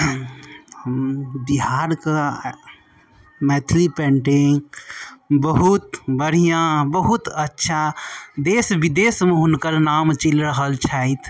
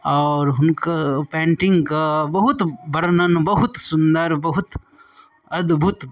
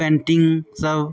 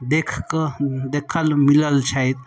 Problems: none marked